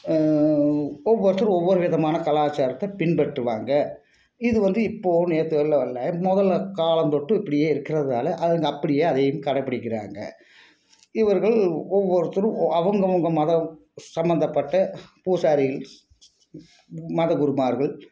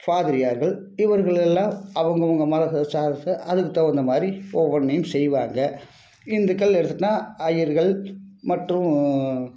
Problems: none marked